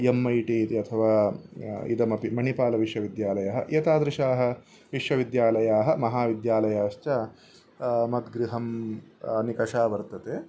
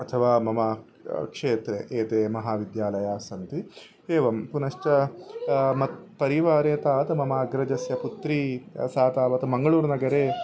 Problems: none marked